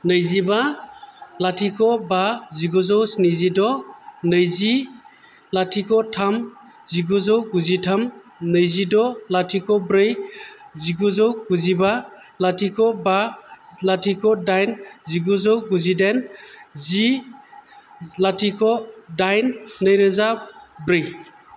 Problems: none marked